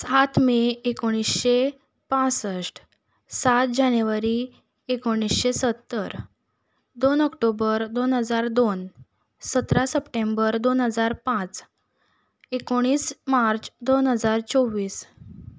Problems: background sounds at intervals